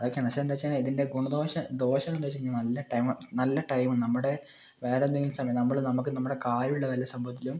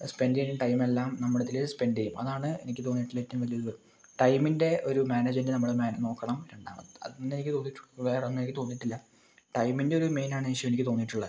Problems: low volume